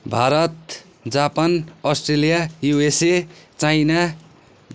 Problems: none marked